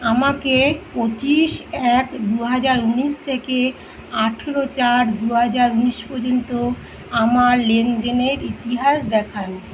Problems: none marked